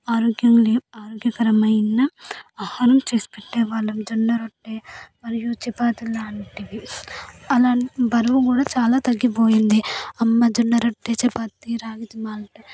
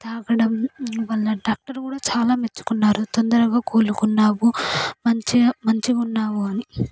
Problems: none marked